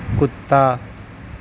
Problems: none marked